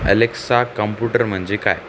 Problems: none marked